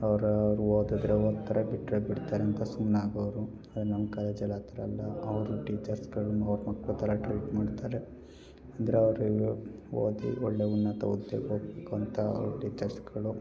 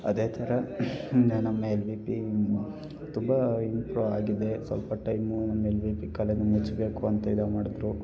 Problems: none marked